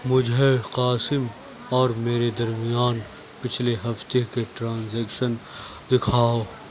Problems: constant background noise, low volume